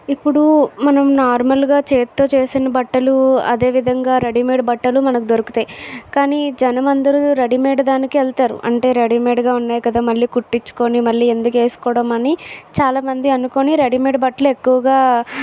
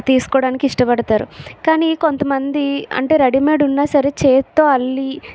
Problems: background sounds at intervals